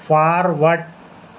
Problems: constant background noise